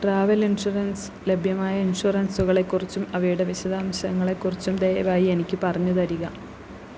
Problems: none marked